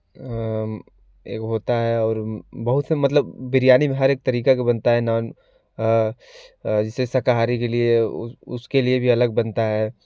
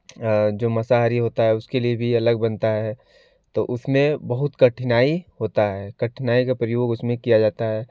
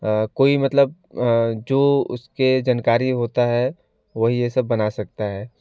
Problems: none marked